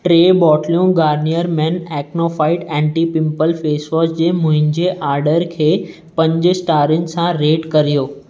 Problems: none marked